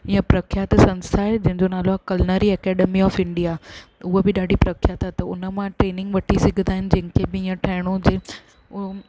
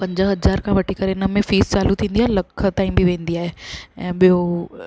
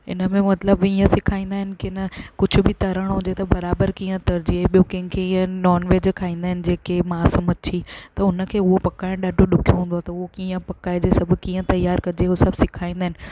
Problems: constant background noise, low volume